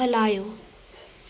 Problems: constant background noise, echo